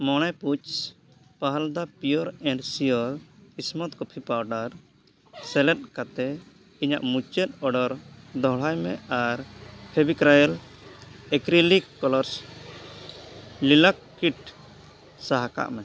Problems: background sounds at intervals